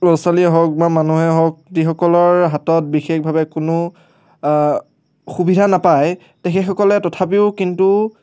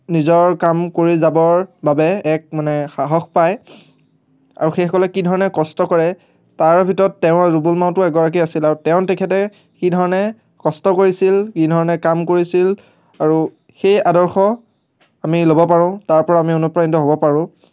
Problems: none marked